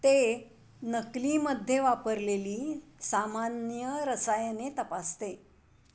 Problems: background sounds at intervals